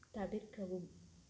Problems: low volume